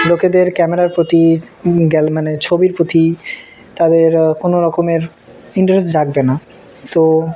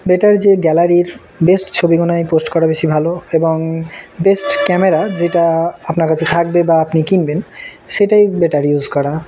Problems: constant background noise, background conversations at intervals